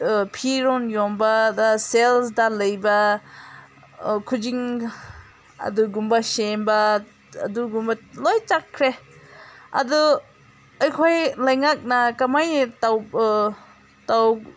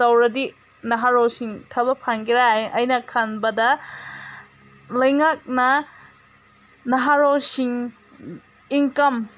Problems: background sounds at intervals